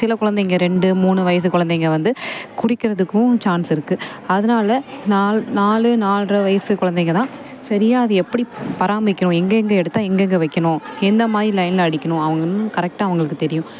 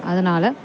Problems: constant background noise